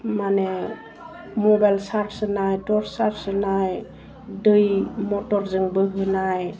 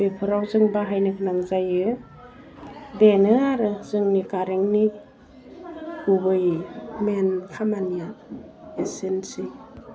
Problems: none marked